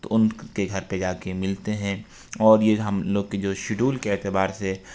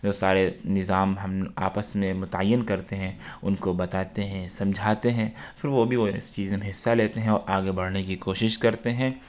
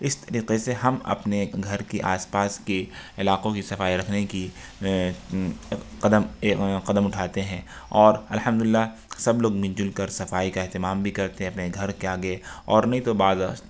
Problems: background sounds at intervals